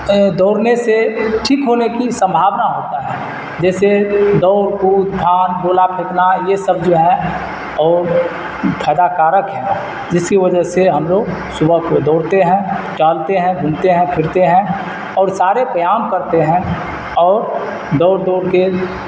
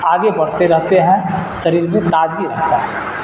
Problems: constant background noise